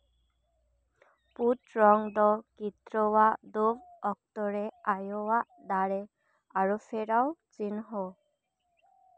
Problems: none marked